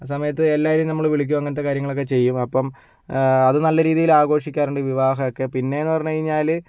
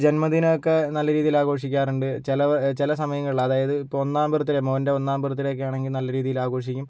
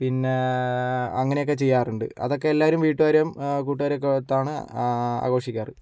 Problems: none marked